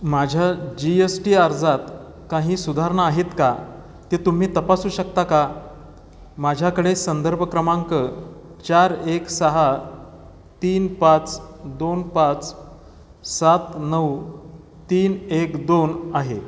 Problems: constant background noise